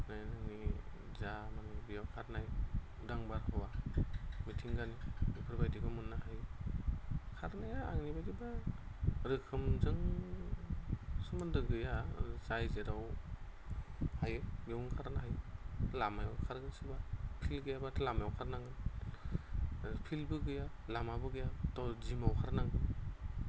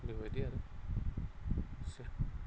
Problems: constant background noise